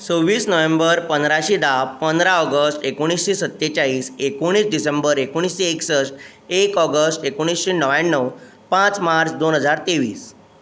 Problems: constant background noise